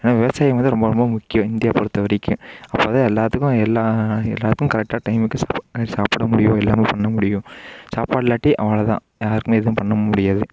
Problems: none marked